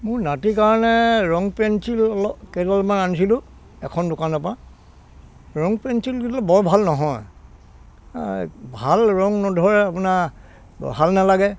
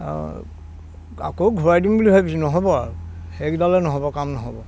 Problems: constant background noise